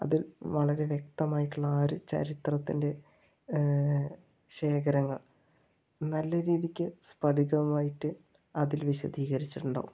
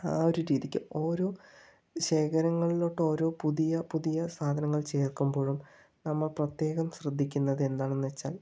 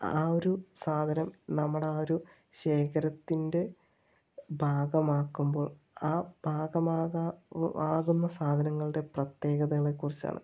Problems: low volume